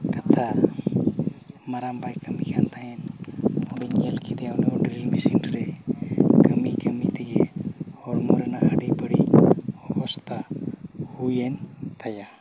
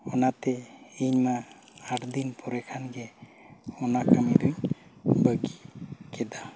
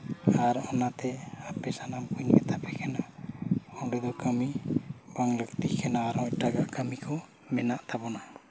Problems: background sounds at intervals